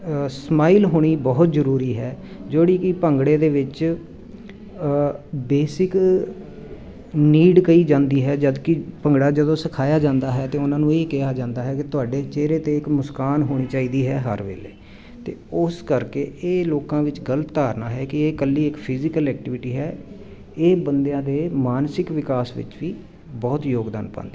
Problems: constant background noise